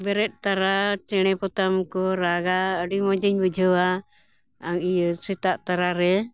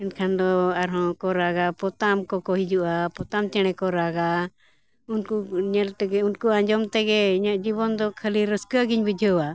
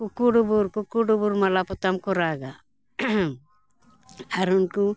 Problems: none marked